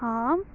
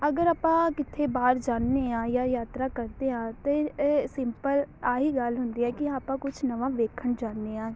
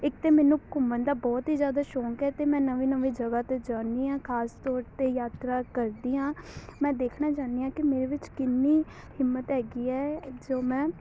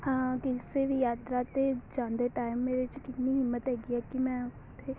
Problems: none marked